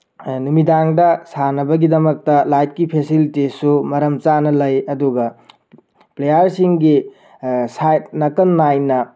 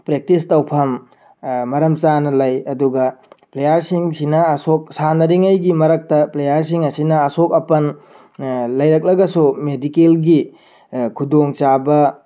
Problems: background sounds at intervals